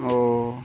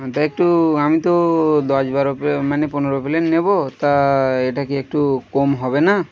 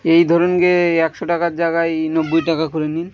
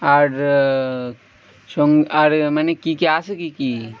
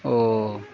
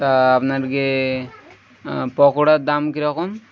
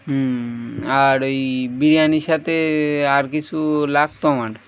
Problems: none marked